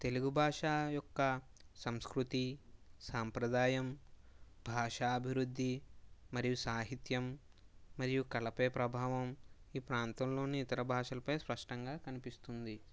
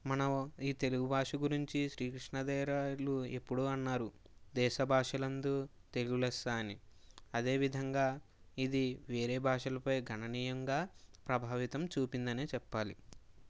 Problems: low volume